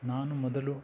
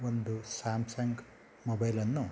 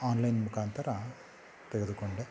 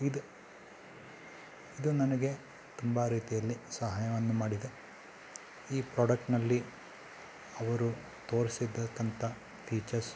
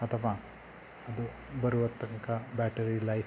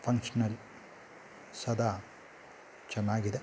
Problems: background sounds at intervals